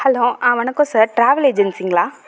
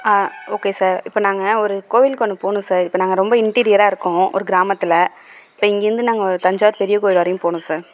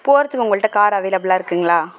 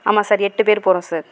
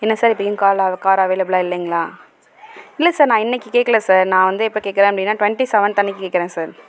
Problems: background sounds at intervals